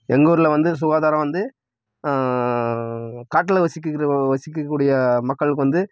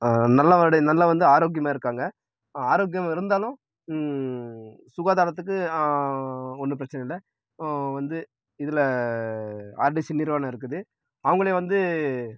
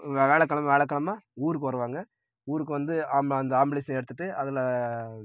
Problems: none marked